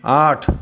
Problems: constant background noise, echo